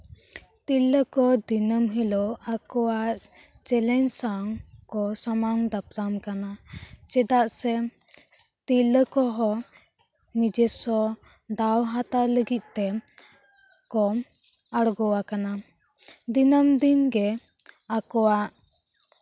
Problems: none marked